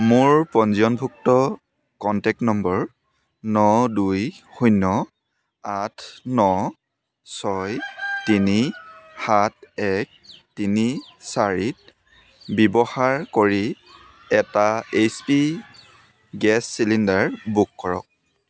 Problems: constant background noise, continuous background conversations